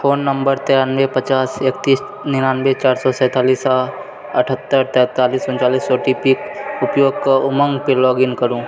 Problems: constant background noise